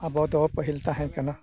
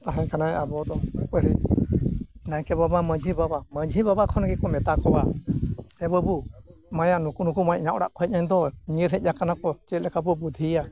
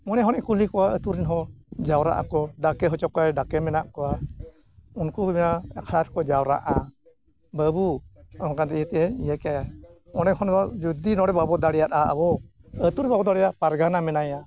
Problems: none marked